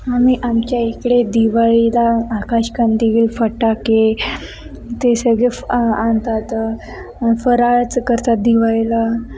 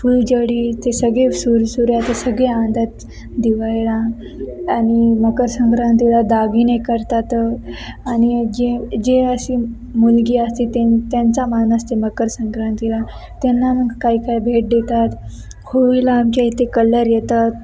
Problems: constant background noise, continuous background conversations